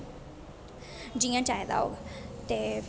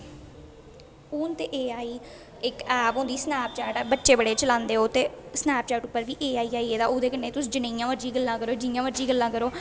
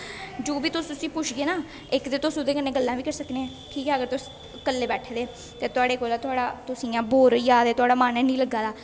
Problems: constant background noise, echo